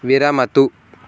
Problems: background sounds at intervals